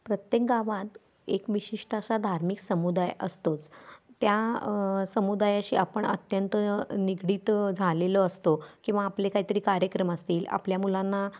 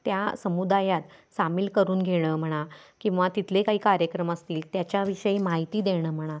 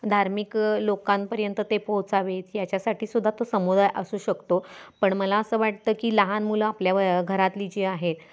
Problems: background sounds at intervals